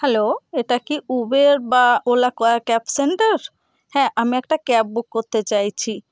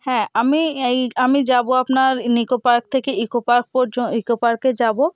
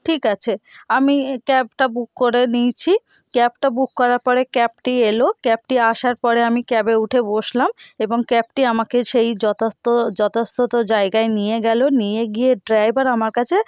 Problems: constant background noise